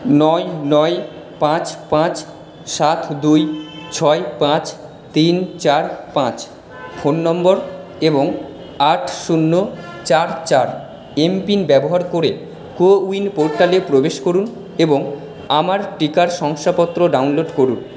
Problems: background sounds at intervals